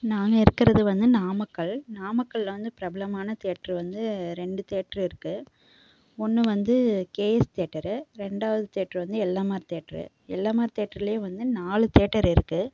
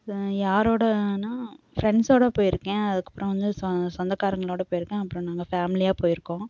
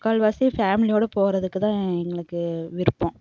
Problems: background sounds at intervals